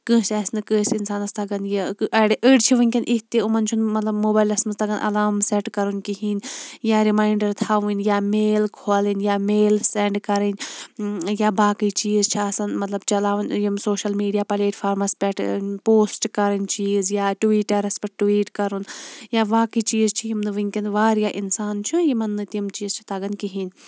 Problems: none marked